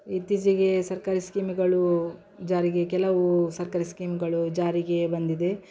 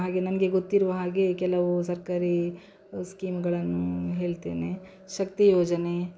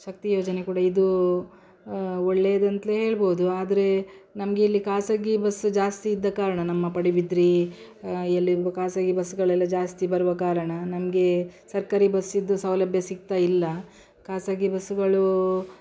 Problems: background sounds at intervals